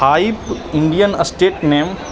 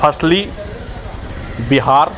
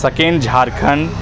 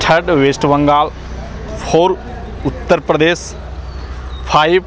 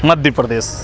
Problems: none marked